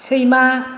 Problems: none marked